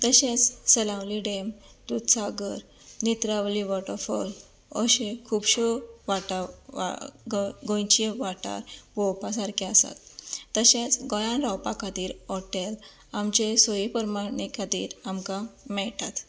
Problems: constant background noise